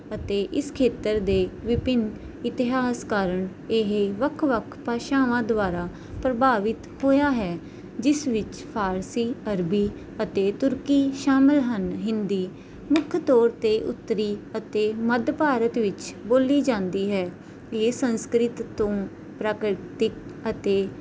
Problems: none marked